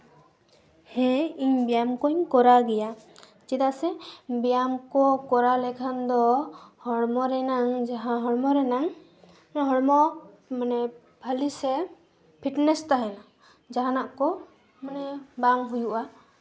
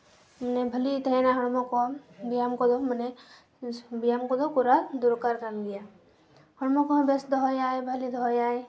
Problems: none marked